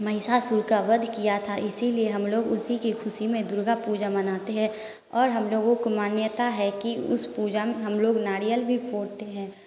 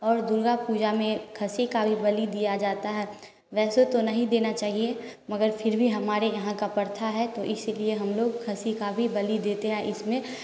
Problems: constant background noise